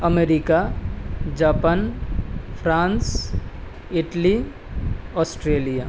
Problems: constant background noise